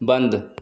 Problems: none marked